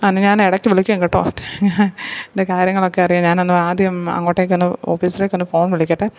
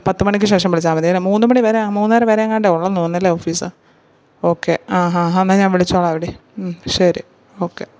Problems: none marked